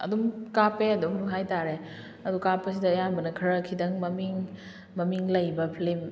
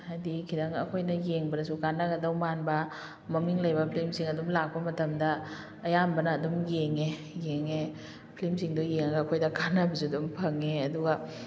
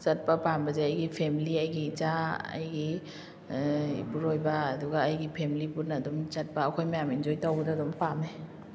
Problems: none marked